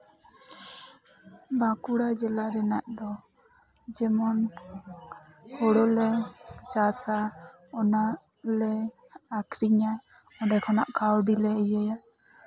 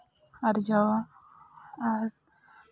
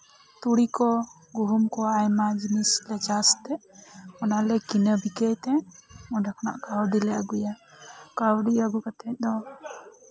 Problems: background conversations at intervals, low volume